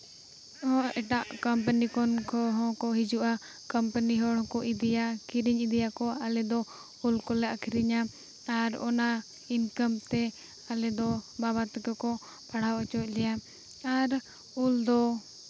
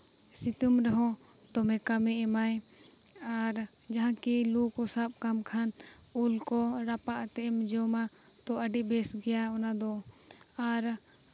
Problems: background sounds at intervals